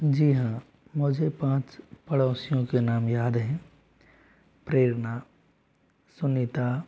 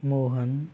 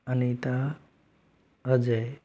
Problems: background sounds at intervals